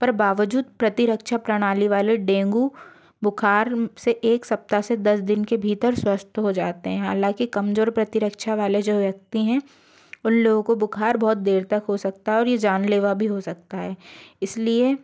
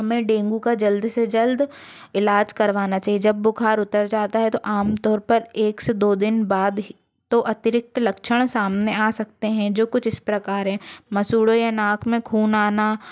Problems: none marked